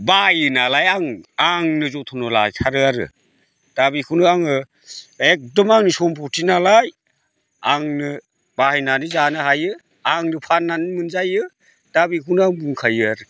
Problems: constant background noise